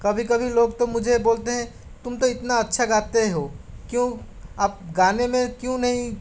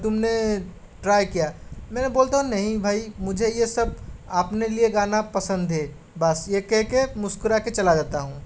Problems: none marked